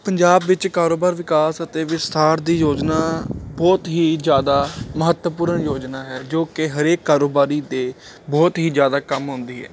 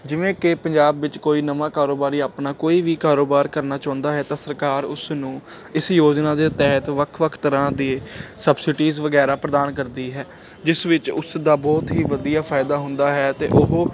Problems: constant background noise